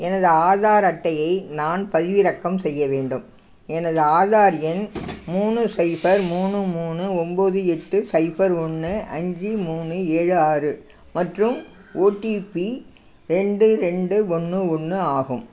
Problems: none marked